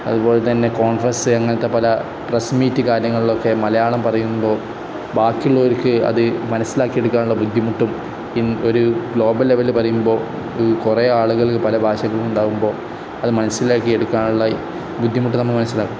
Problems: constant background noise